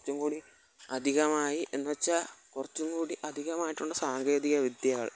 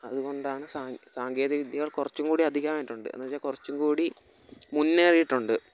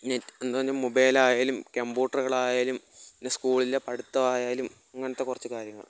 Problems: background sounds at intervals, low volume